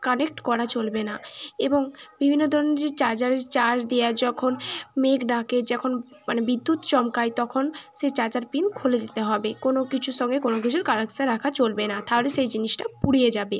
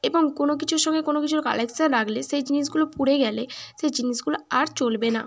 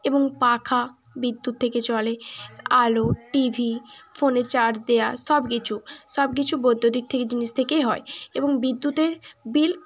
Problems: continuous background conversations